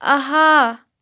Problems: background sounds at intervals